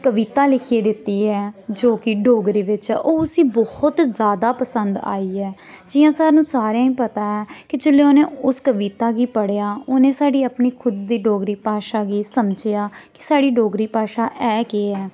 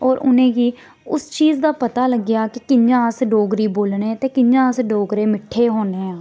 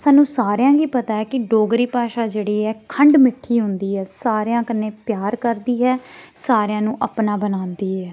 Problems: none marked